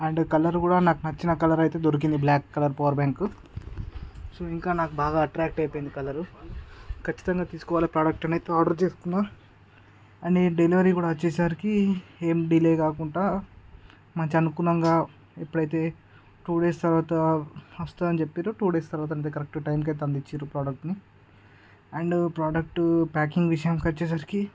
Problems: none marked